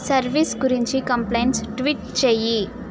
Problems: none marked